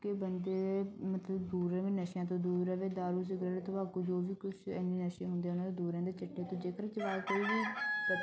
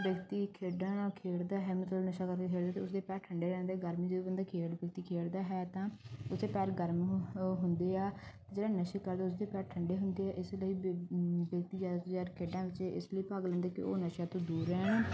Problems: background sounds at intervals